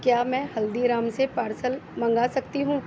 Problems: constant background noise